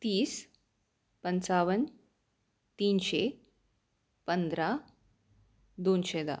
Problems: constant background noise